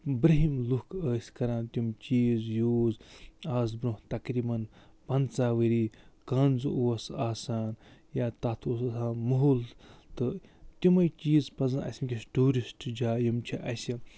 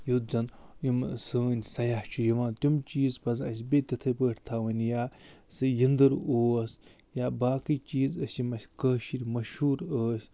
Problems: none marked